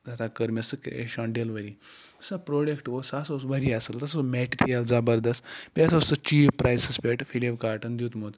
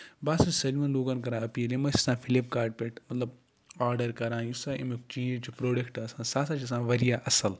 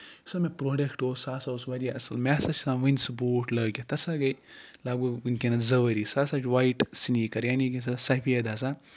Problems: background sounds at intervals